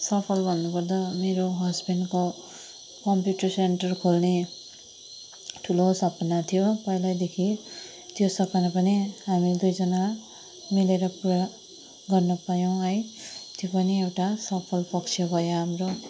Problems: background sounds at intervals